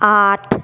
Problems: background sounds at intervals